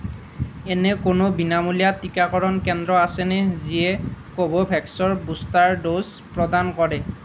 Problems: none marked